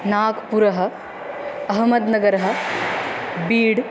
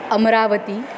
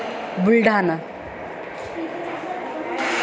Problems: continuous background conversations